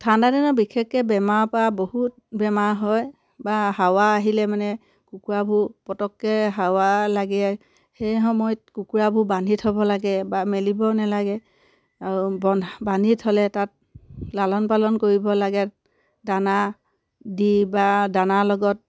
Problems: none marked